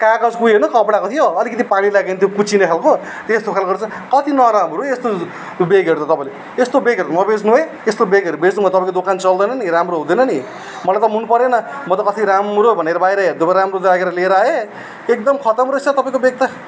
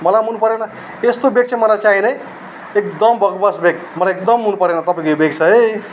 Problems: none marked